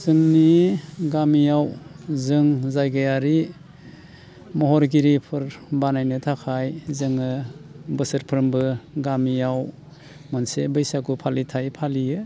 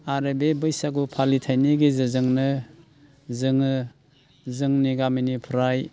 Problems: constant background noise